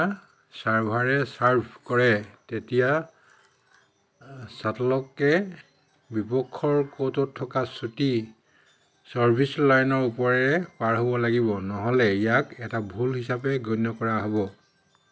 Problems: constant background noise